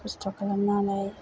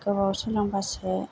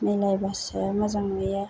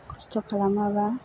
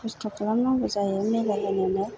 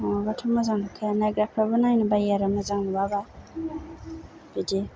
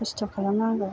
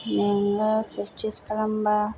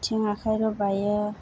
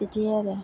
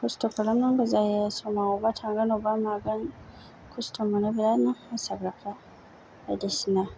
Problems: low volume